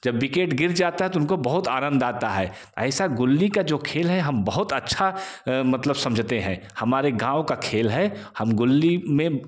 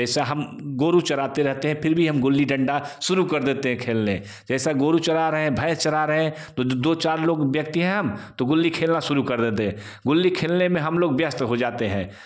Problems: none marked